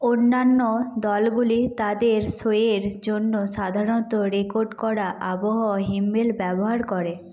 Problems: none marked